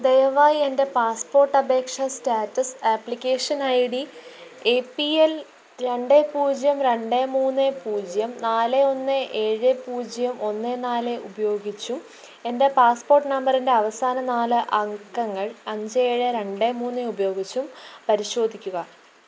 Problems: none marked